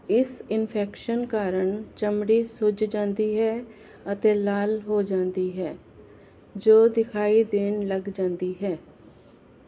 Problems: none marked